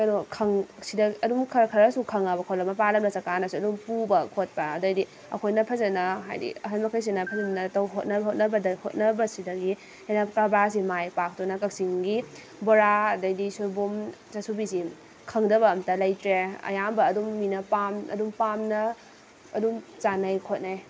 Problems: constant background noise